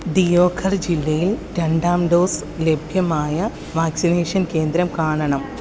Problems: none marked